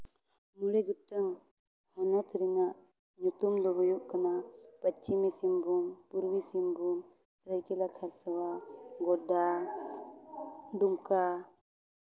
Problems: none marked